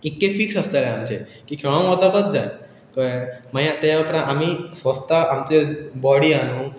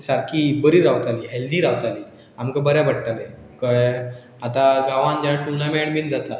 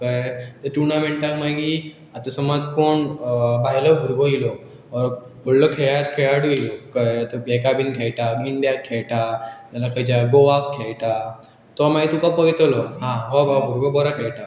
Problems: continuous background conversations